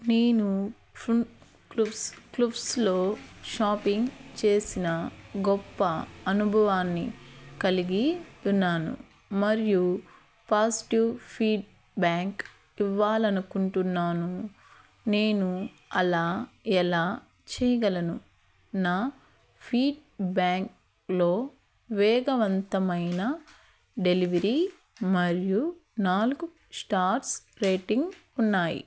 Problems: none marked